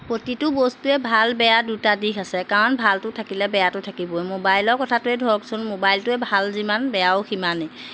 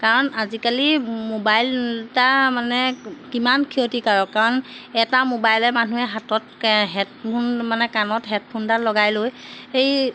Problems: none marked